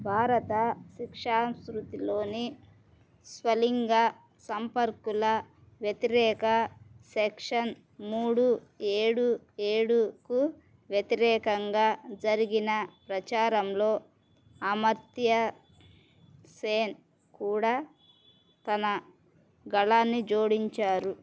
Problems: constant background noise